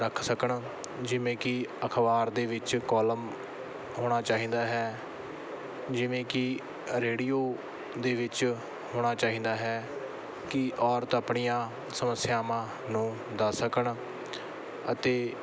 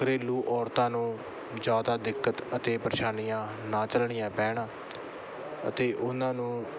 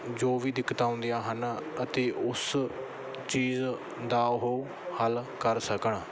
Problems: background sounds at intervals